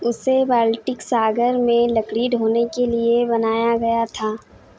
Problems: none marked